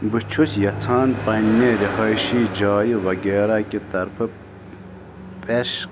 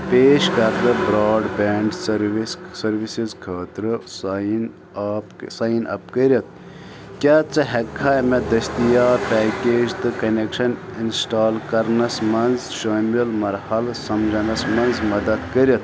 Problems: constant background noise